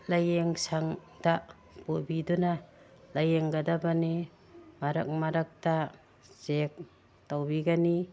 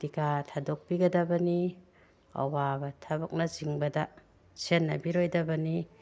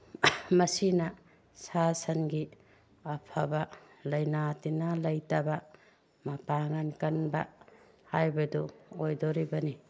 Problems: none marked